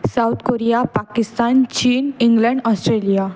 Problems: background sounds at intervals